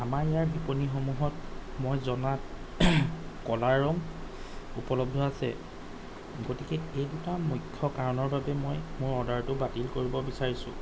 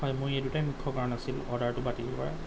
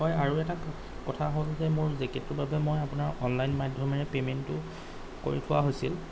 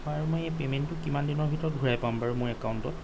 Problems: none marked